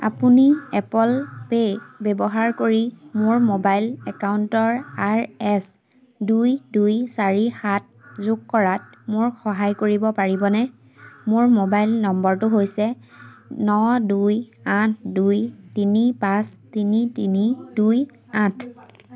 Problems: constant background noise